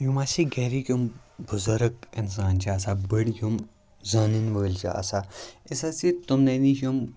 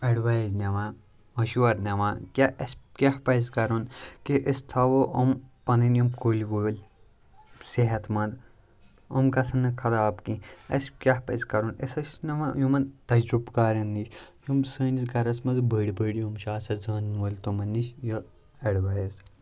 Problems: none marked